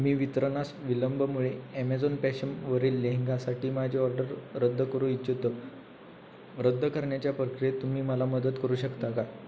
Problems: constant background noise, background conversations at intervals